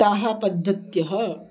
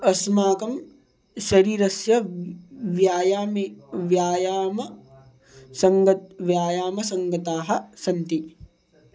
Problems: background sounds at intervals